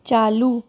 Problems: none marked